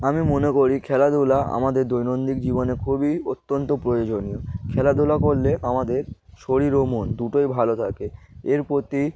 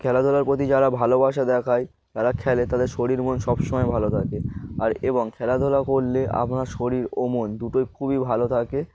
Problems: none marked